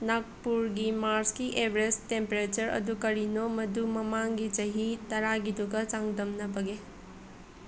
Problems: background conversations at intervals